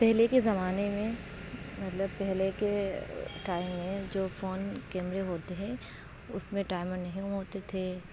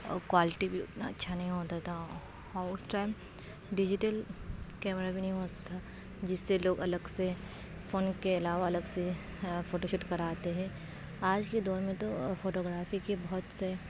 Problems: constant background noise, low volume